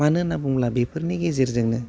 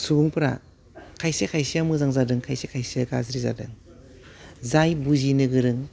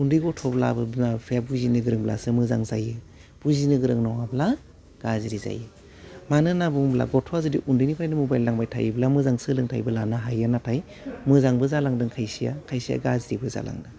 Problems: none marked